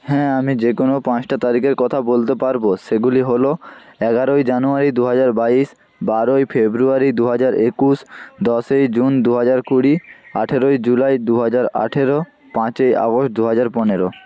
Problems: constant background noise